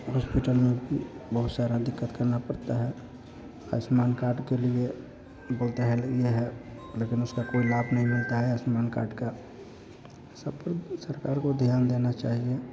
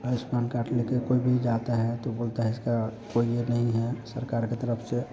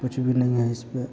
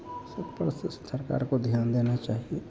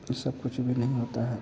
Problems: none marked